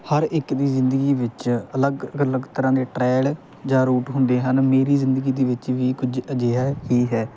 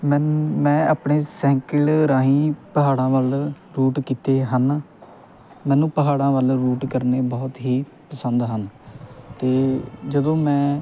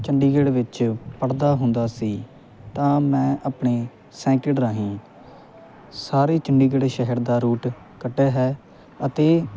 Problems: constant background noise